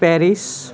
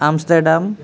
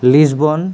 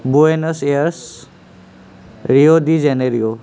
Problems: constant background noise